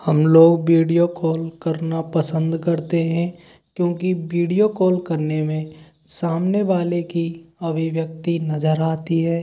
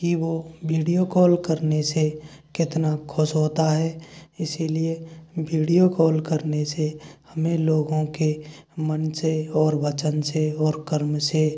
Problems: none marked